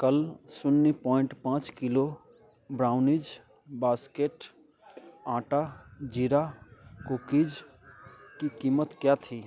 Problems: background sounds at intervals